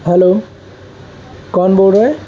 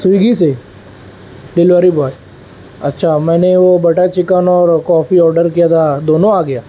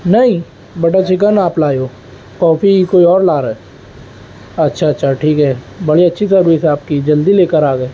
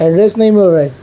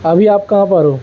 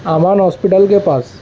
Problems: none marked